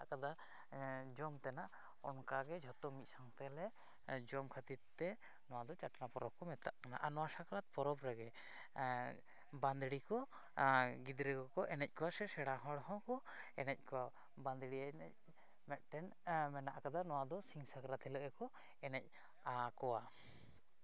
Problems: none marked